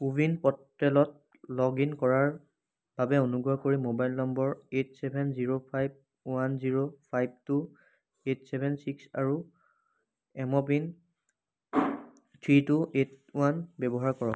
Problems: background sounds at intervals